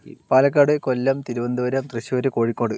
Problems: background sounds at intervals